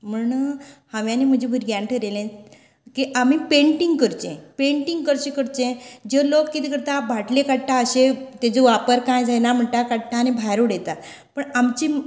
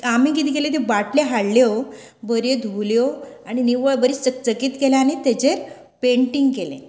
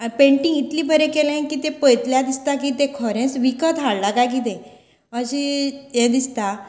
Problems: constant background noise